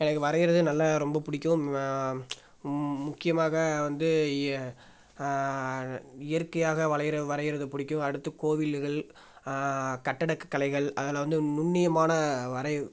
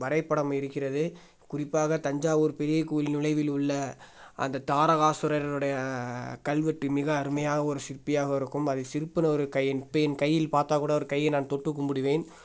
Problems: none marked